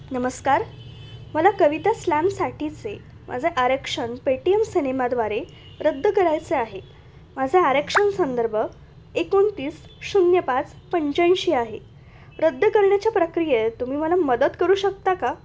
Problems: constant background noise, continuous background conversations